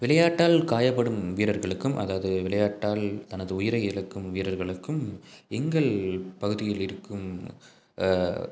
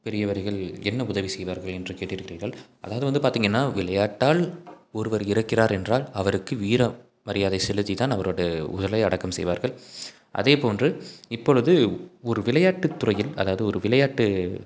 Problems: none marked